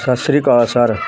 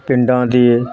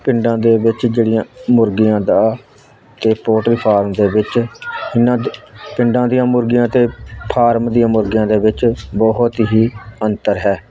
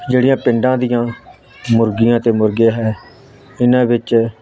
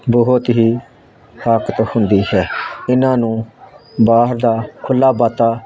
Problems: constant background noise